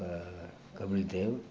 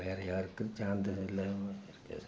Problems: background sounds at intervals